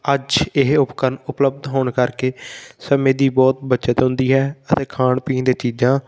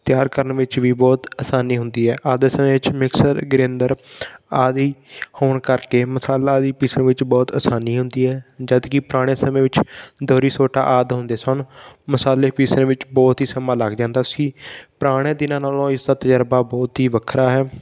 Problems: background sounds at intervals